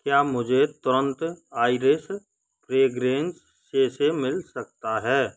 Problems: background sounds at intervals